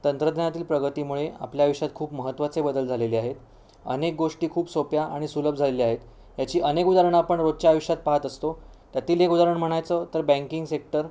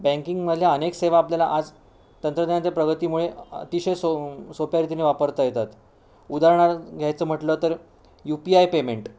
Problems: background sounds at intervals